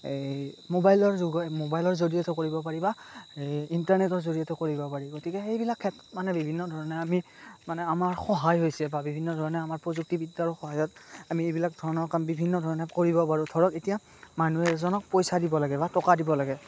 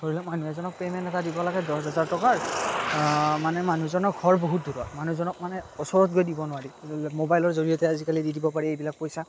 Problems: constant background noise